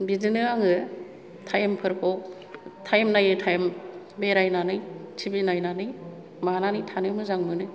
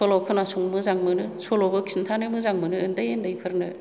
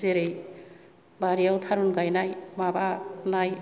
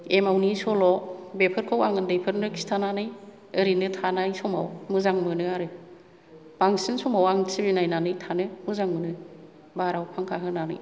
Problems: low volume